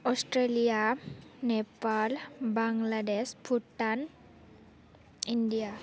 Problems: none marked